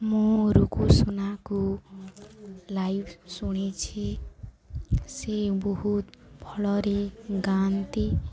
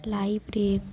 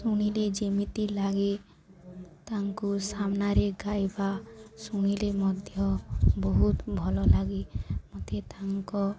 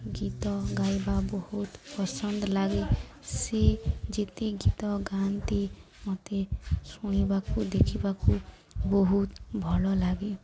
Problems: constant background noise, continuous background conversations